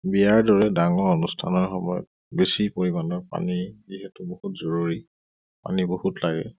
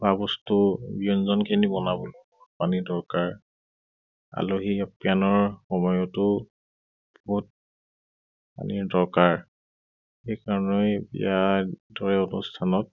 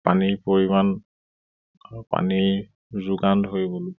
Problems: none marked